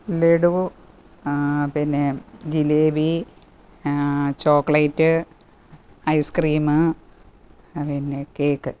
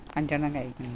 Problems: background conversations at intervals